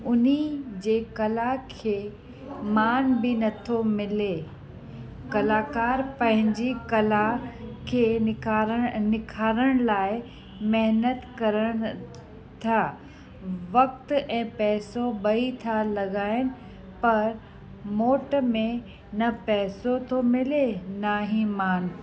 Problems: constant background noise